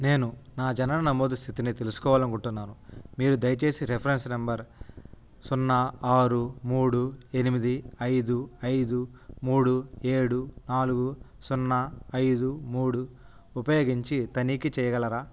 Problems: none marked